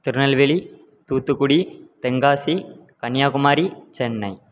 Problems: none marked